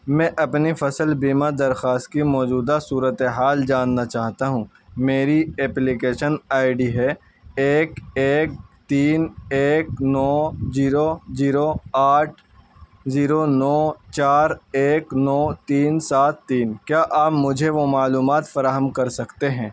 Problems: constant background noise